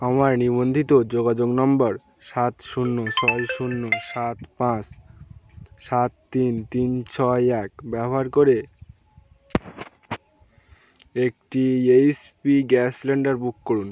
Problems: none marked